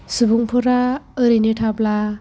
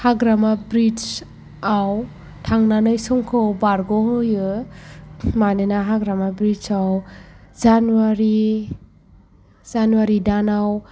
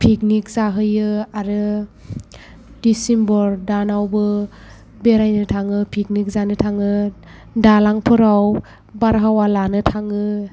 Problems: background sounds at intervals